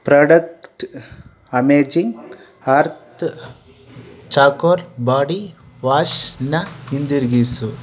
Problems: constant background noise